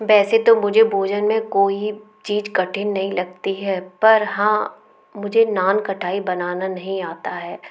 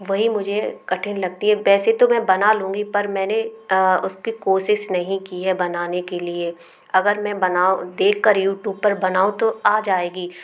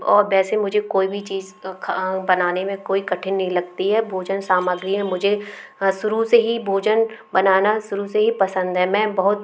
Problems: constant background noise, background conversations at intervals